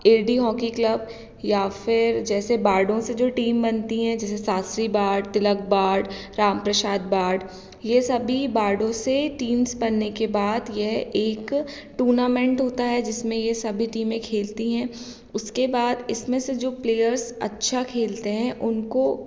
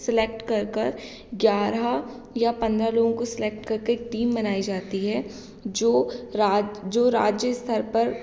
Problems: none marked